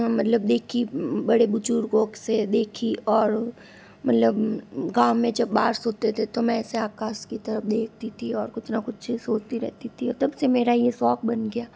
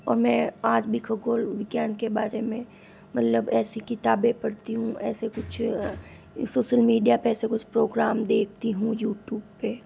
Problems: constant background noise